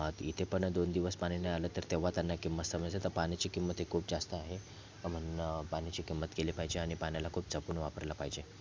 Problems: constant background noise, background conversations at intervals